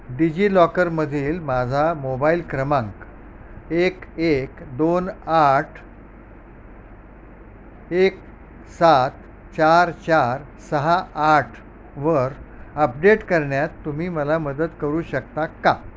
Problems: constant background noise